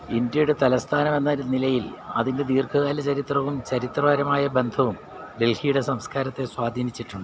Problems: constant background noise